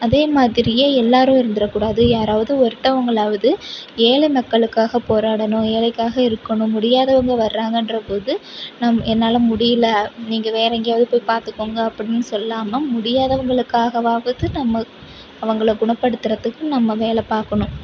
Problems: constant background noise